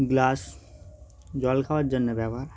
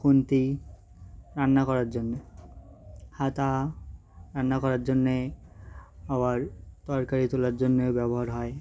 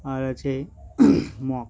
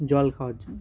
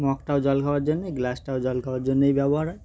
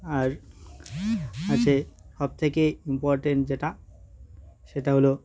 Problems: background sounds at intervals